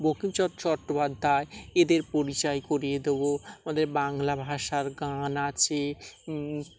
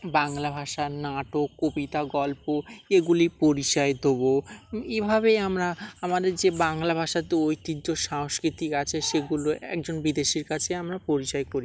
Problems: background sounds at intervals